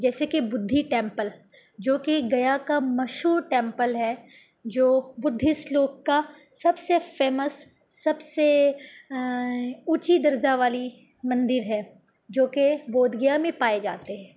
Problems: none marked